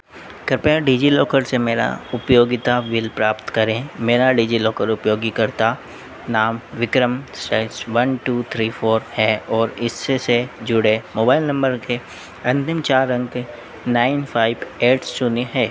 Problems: none marked